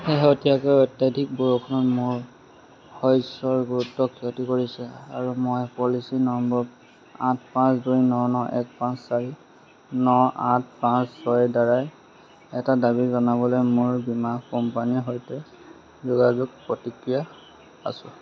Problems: constant background noise, background conversations at intervals